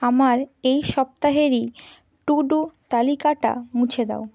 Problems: none marked